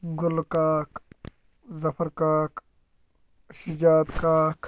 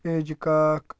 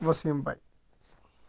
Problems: low volume